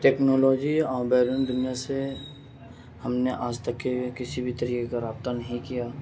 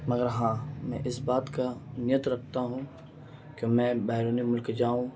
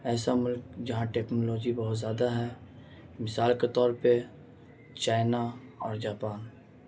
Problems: constant background noise, low volume